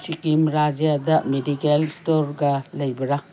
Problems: background sounds at intervals